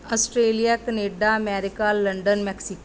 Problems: none marked